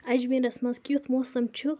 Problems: none marked